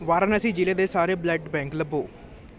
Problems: none marked